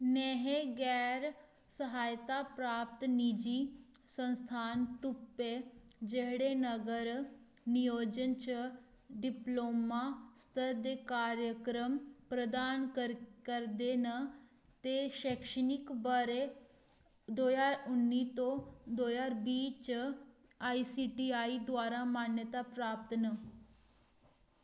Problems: low volume